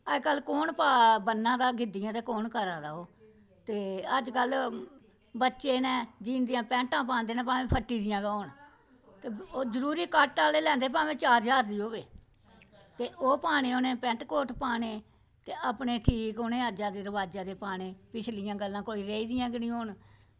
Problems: none marked